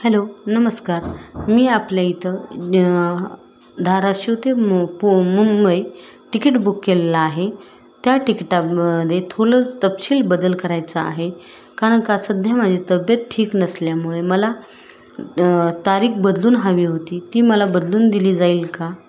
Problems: constant background noise, background conversations at intervals